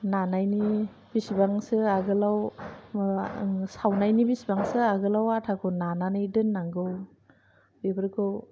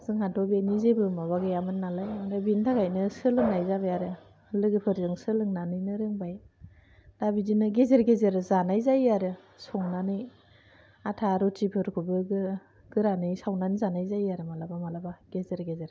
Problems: low volume